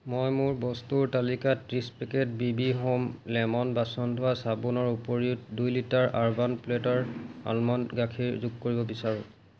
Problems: constant background noise